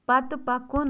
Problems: background sounds at intervals